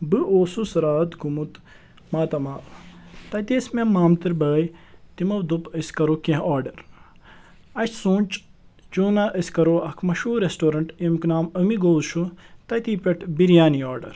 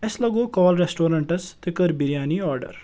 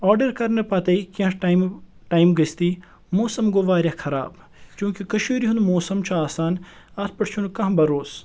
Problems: none marked